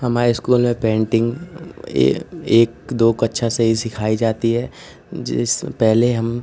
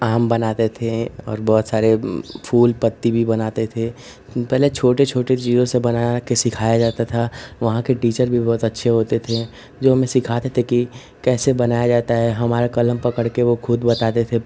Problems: constant background noise